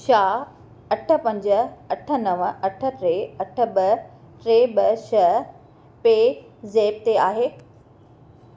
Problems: none marked